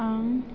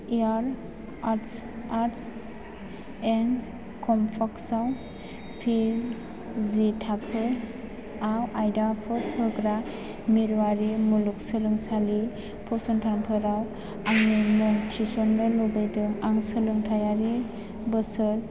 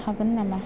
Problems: none marked